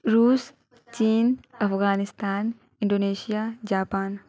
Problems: none marked